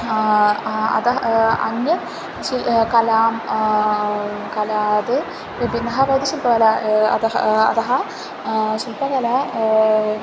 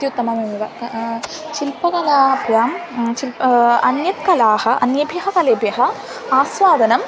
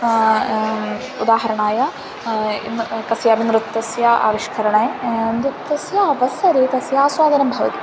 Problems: background sounds at intervals